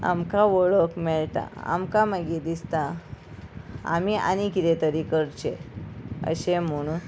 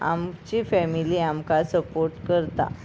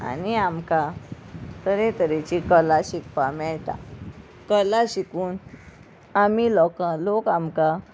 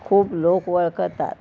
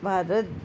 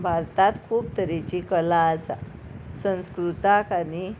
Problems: background sounds at intervals, background conversations at intervals